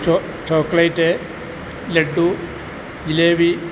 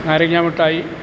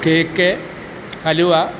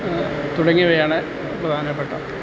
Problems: constant background noise